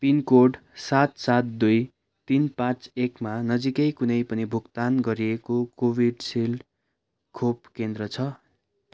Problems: none marked